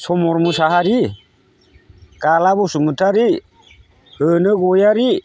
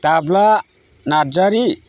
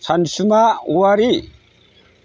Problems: constant background noise